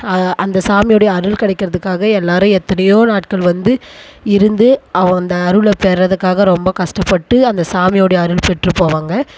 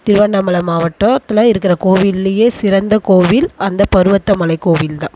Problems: background sounds at intervals